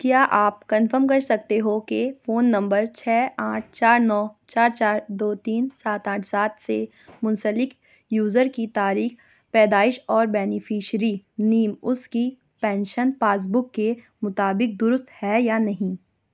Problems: none marked